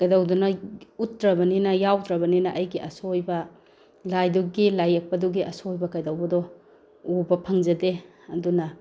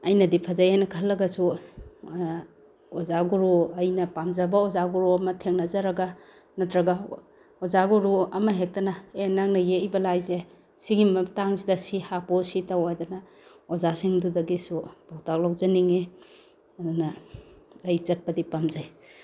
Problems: none marked